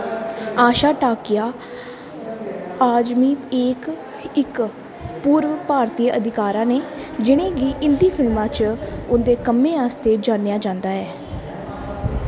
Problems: constant background noise, background conversations at intervals